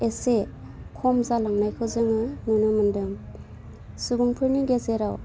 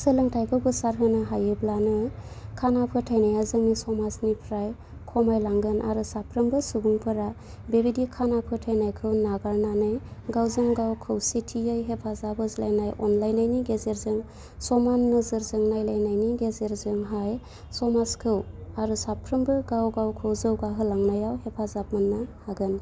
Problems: constant background noise